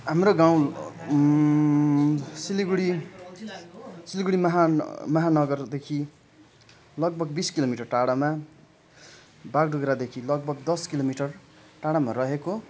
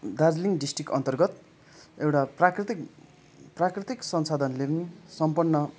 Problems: continuous background conversations